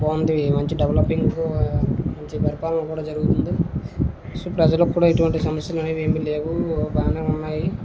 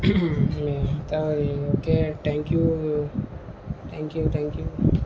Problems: constant background noise